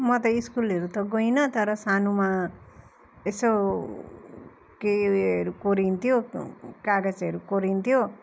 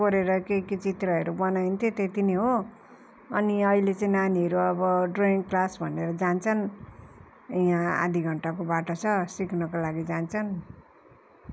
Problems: none marked